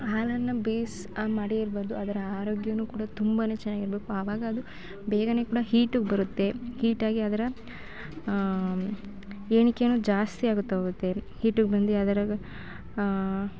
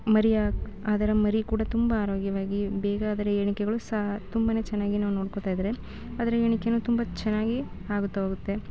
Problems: background sounds at intervals